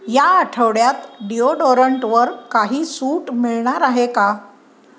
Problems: background sounds at intervals